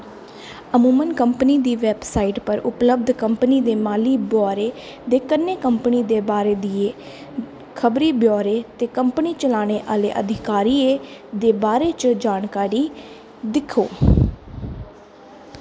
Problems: constant background noise